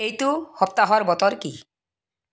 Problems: none marked